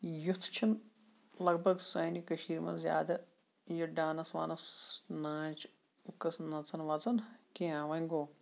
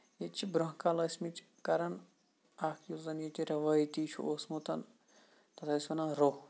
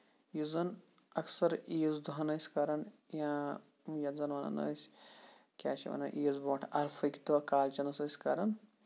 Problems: none marked